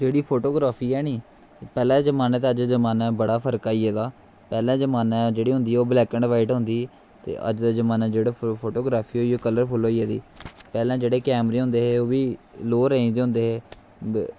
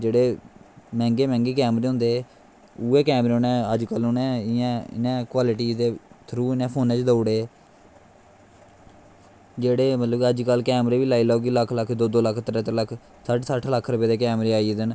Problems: constant background noise